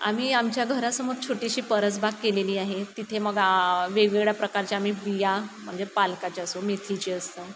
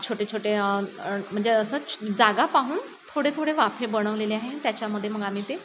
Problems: constant background noise